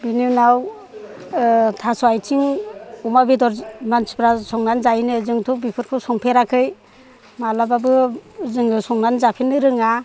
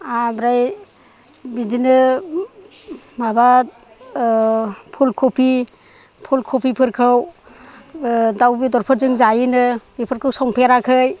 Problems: none marked